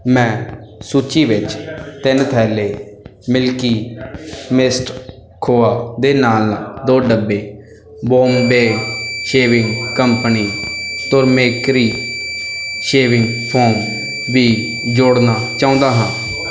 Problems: constant background noise